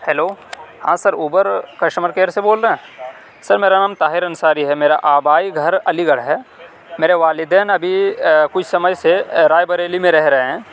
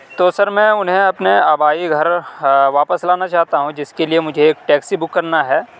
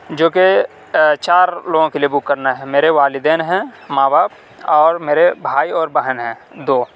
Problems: none marked